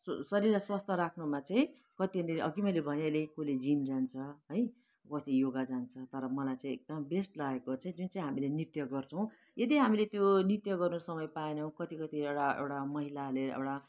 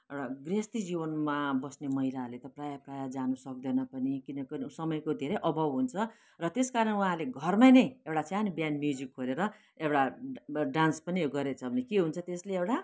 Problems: background sounds at intervals